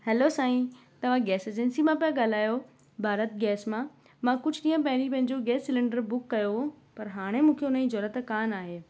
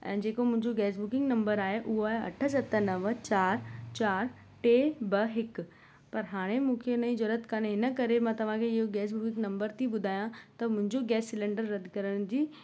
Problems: constant background noise